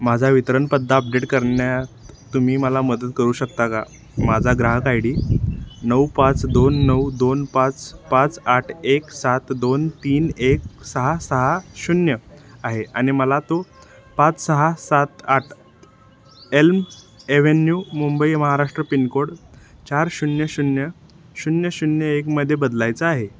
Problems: background sounds at intervals, background conversations at intervals